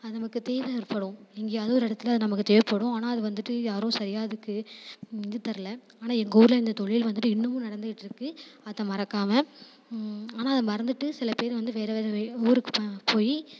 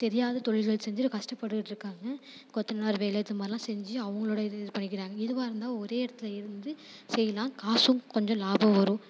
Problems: constant background noise